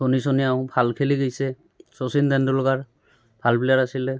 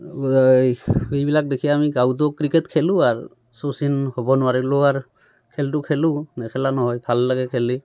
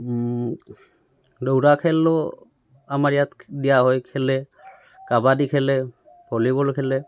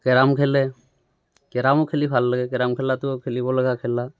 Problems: background sounds at intervals, background conversations at intervals